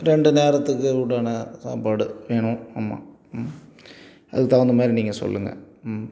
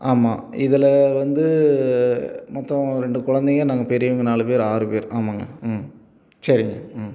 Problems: none marked